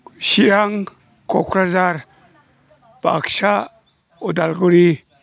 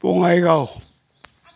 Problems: none marked